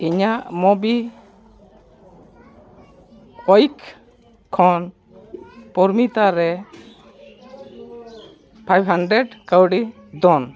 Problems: constant background noise, background conversations at intervals